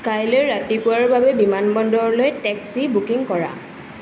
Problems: constant background noise